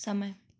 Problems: background sounds at intervals